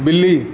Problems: background sounds at intervals